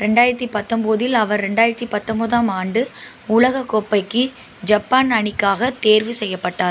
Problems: constant background noise